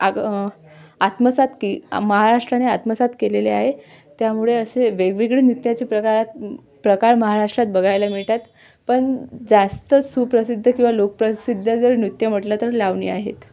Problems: background sounds at intervals